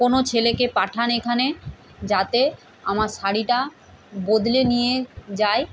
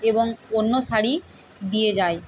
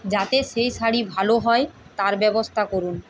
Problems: constant background noise